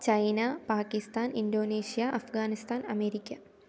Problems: low volume